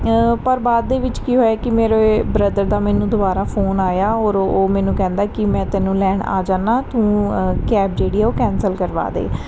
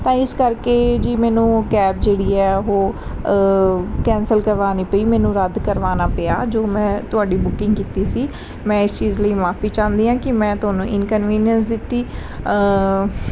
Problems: none marked